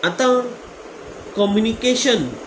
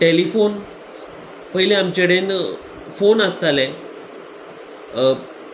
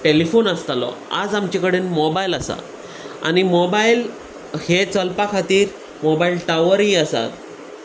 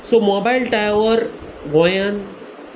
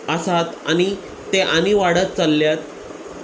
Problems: constant background noise